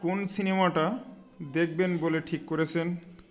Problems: none marked